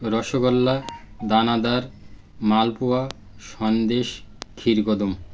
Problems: constant background noise